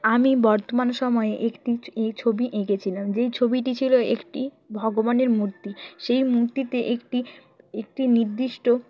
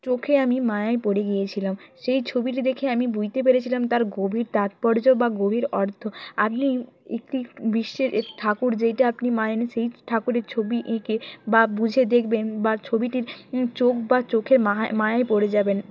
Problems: background sounds at intervals